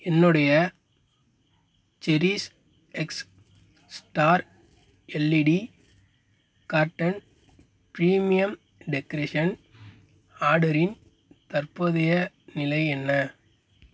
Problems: constant background noise